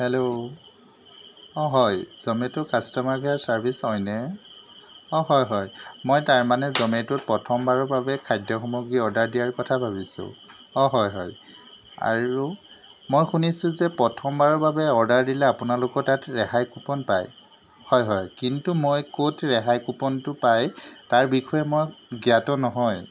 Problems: none marked